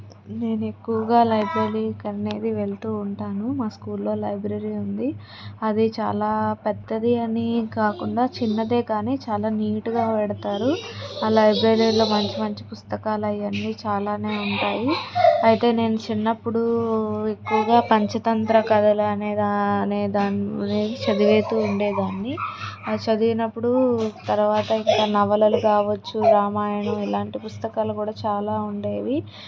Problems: background conversations at intervals